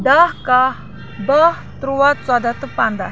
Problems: constant background noise